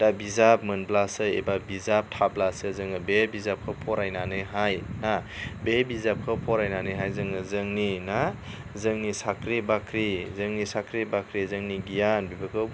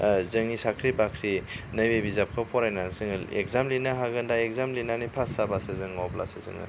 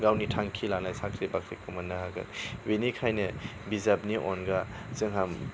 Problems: none marked